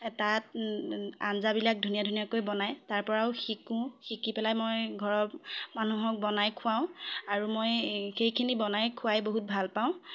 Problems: background conversations at intervals